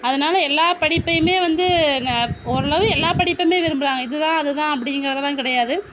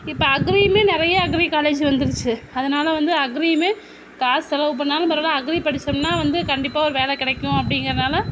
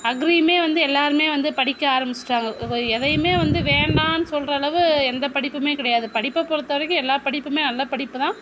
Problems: constant background noise